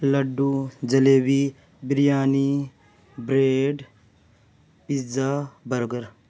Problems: none marked